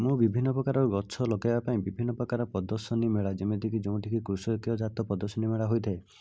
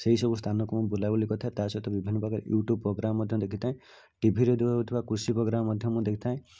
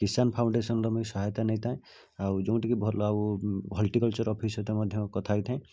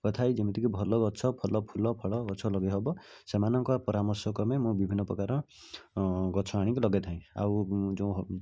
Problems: low volume